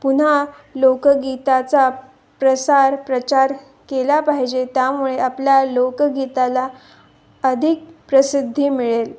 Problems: none marked